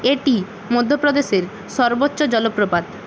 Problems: constant background noise